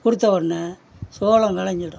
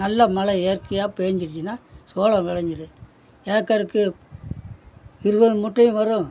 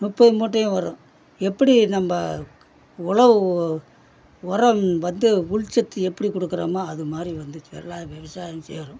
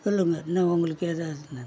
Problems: background conversations at intervals